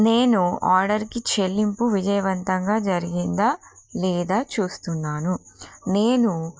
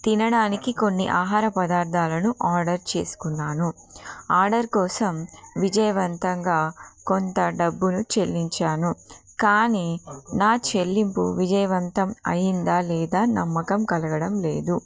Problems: constant background noise